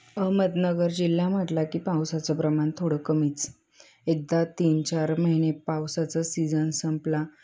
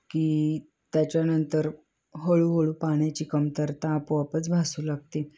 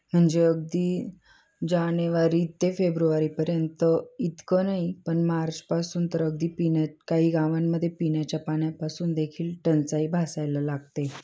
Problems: background sounds at intervals